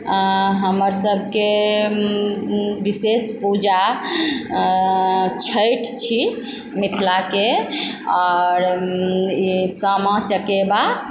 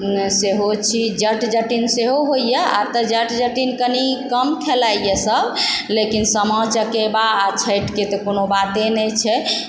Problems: none marked